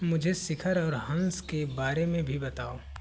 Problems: constant background noise